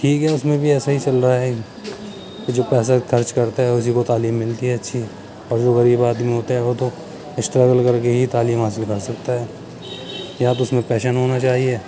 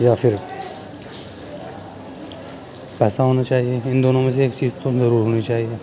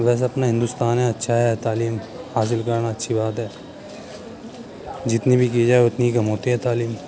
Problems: constant background noise